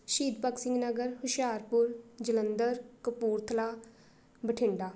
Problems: none marked